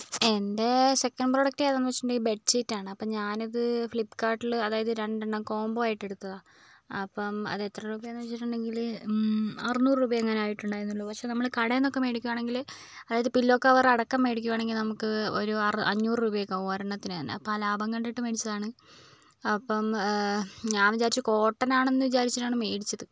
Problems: low volume